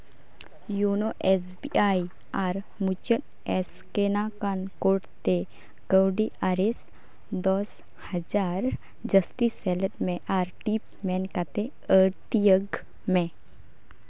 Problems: background sounds at intervals